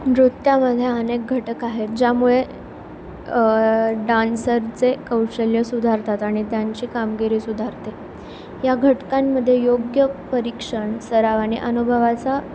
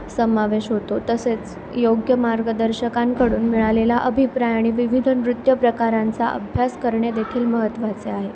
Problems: none marked